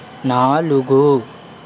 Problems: constant background noise